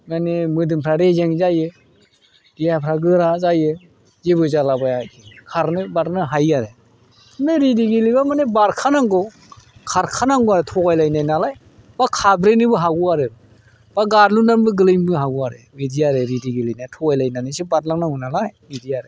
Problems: none marked